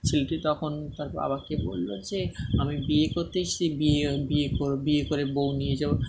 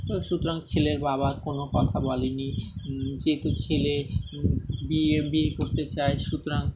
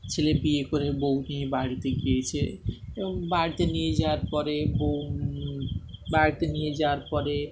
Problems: constant background noise, background conversations at intervals